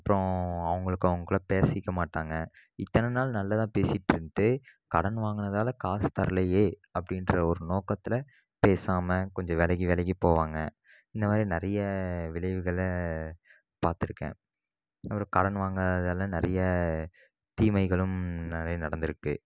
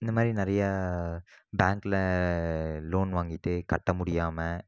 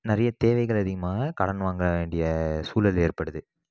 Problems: none marked